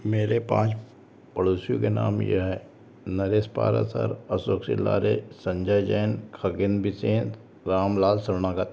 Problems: constant background noise